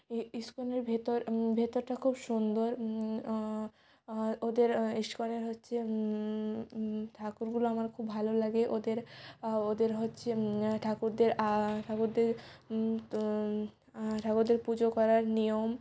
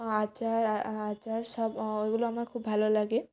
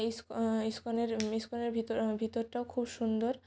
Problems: background sounds at intervals